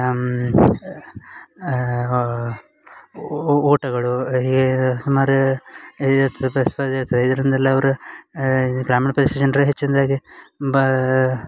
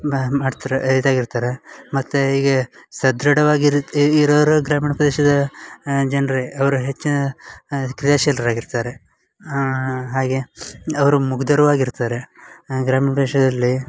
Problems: none marked